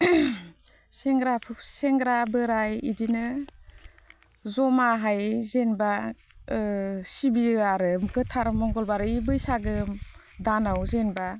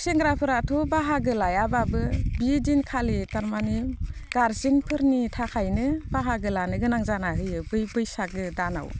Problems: none marked